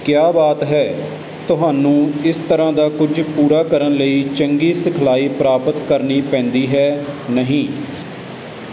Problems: none marked